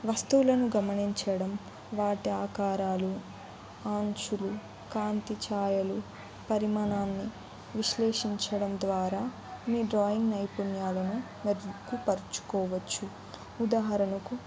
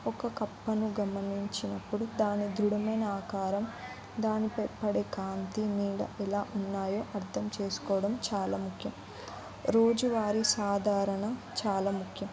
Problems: background conversations at intervals